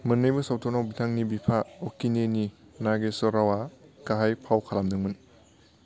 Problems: none marked